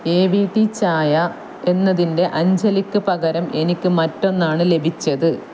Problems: constant background noise